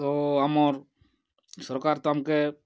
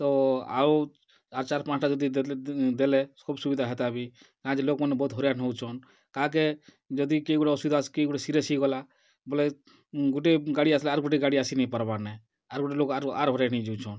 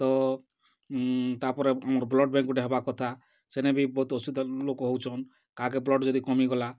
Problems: none marked